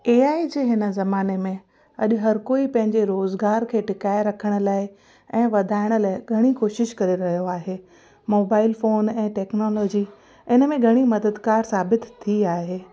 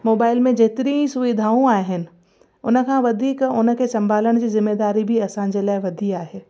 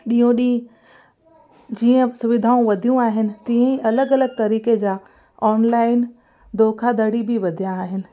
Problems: constant background noise, echo